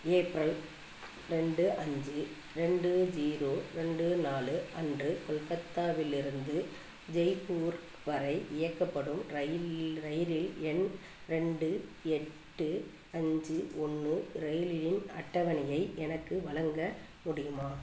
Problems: none marked